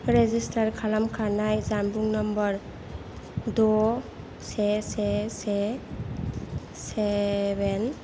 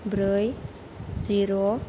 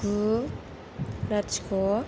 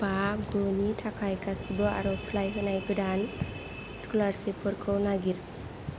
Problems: background sounds at intervals